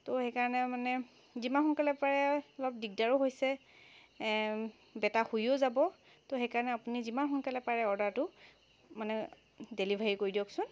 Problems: constant background noise